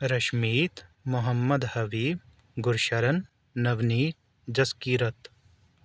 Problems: background sounds at intervals